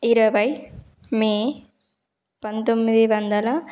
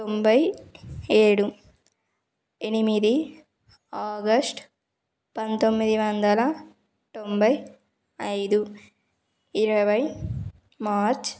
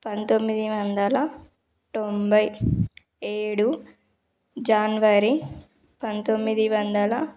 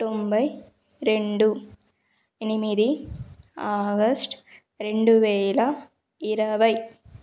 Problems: background sounds at intervals